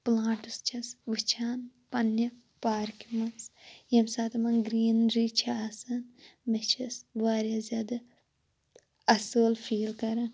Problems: constant background noise